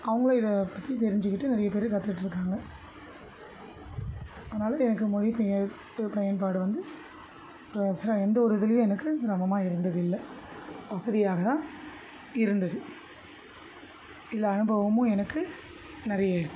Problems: constant background noise